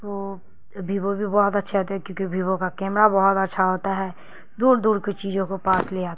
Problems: constant background noise